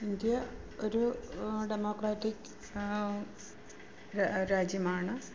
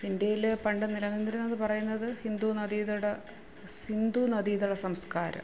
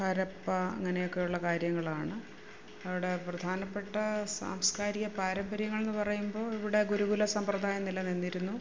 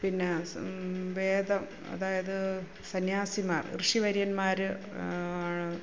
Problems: low volume